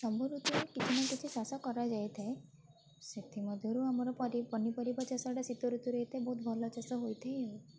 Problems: constant background noise